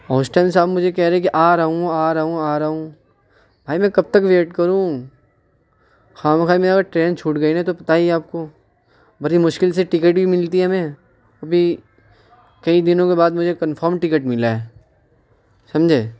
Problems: constant background noise